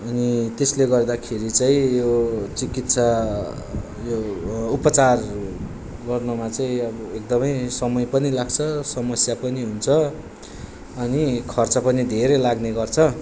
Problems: constant background noise